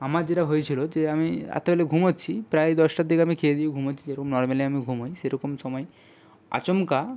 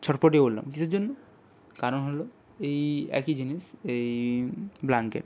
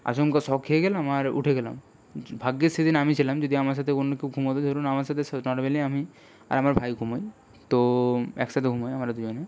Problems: background sounds at intervals